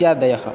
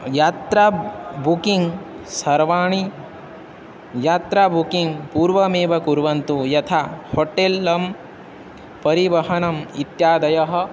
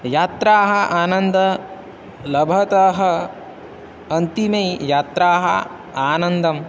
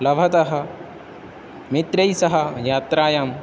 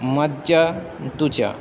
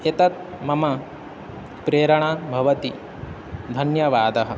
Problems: none marked